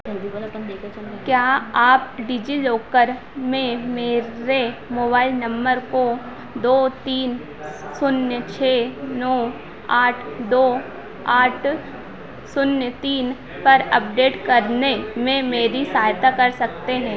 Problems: constant background noise